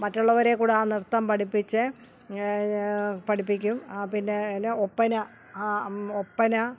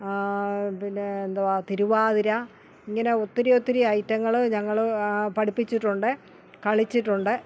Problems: none marked